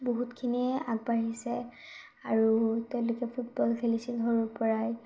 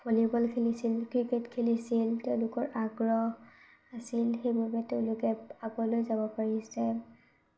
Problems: none marked